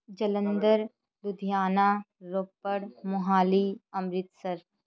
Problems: continuous background conversations